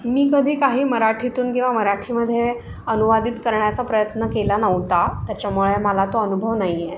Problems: constant background noise